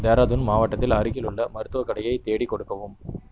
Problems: constant background noise